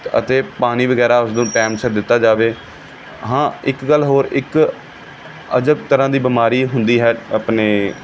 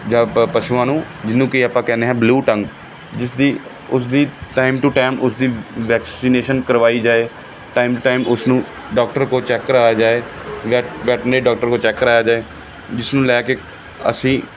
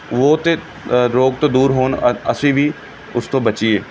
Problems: background sounds at intervals